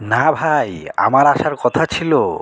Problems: none marked